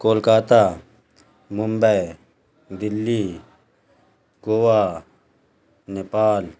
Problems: constant background noise